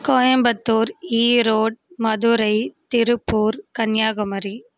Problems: constant background noise